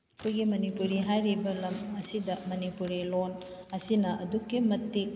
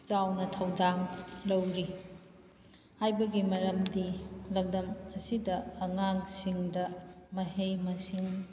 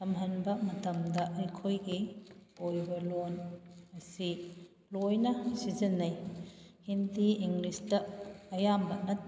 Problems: background sounds at intervals